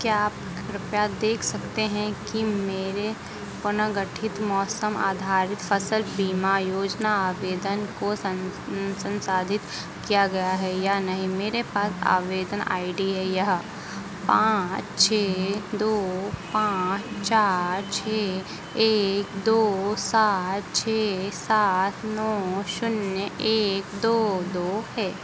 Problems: constant background noise